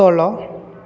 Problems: none marked